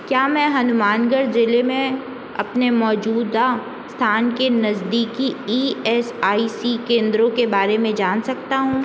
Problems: constant background noise